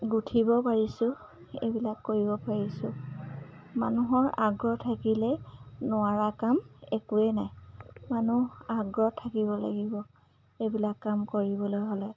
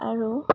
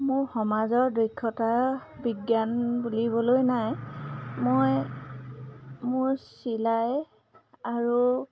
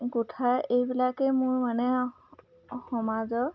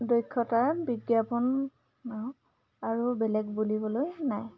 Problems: none marked